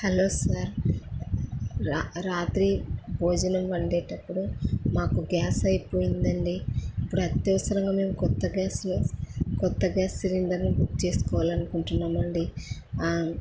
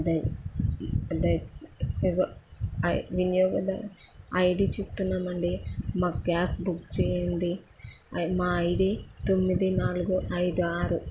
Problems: none marked